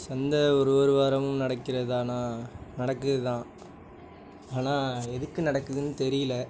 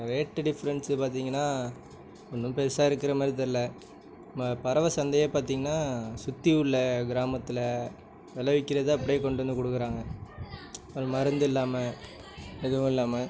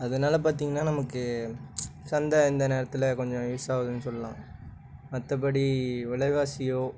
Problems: background conversations at intervals